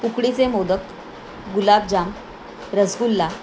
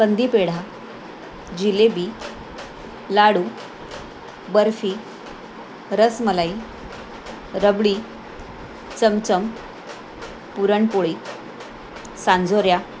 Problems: constant background noise